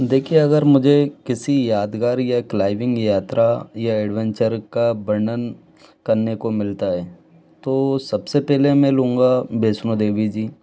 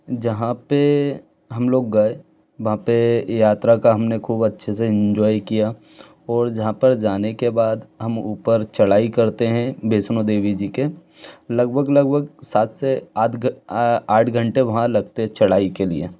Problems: background sounds at intervals